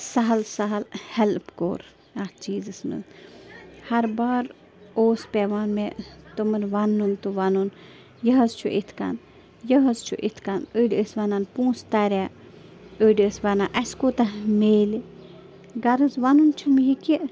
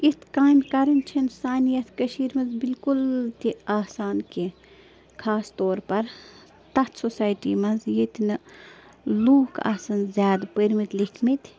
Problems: constant background noise